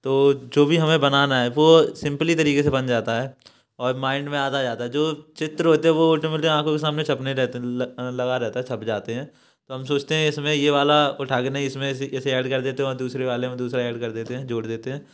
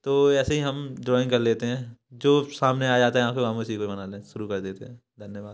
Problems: background sounds at intervals